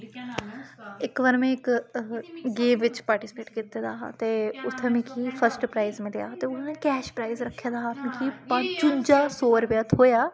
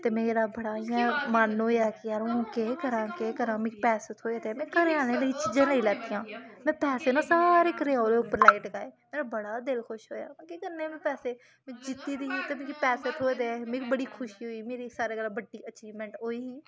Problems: constant background noise, background conversations at intervals